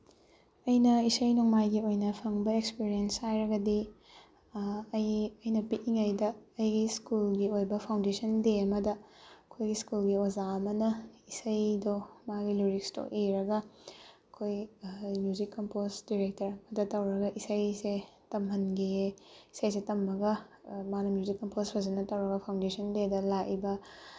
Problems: none marked